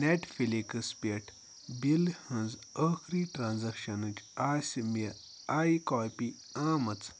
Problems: constant background noise